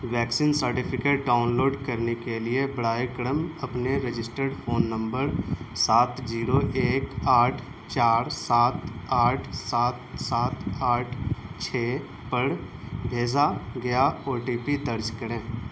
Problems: constant background noise